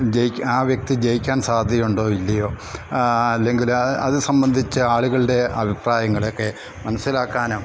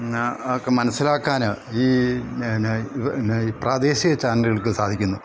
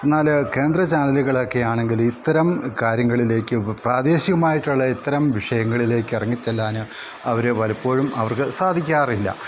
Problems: background sounds at intervals